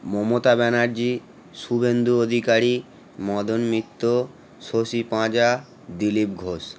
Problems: constant background noise